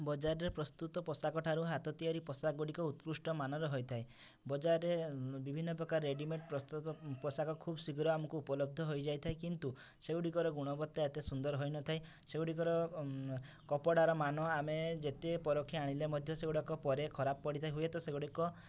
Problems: none marked